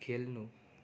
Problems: none marked